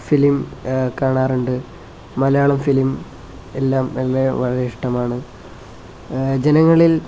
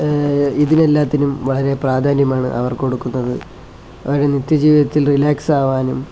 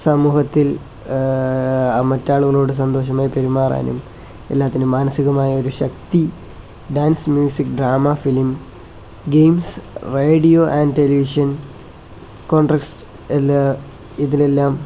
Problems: none marked